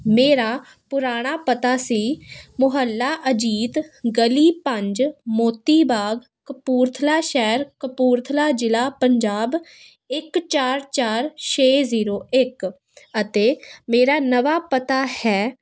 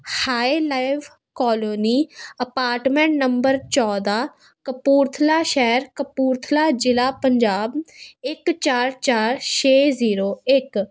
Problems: none marked